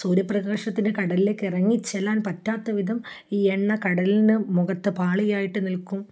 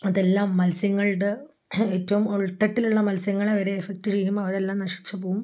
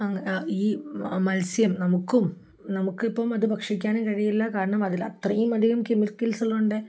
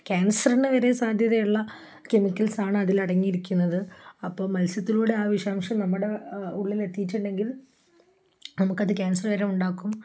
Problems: none marked